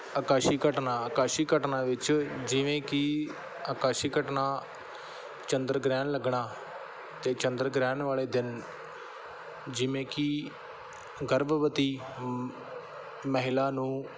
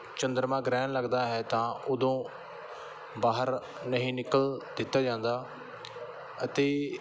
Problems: background sounds at intervals